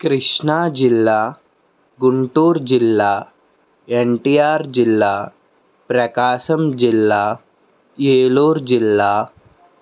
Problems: none marked